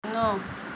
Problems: constant background noise